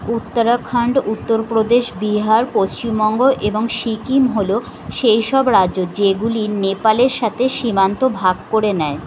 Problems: none marked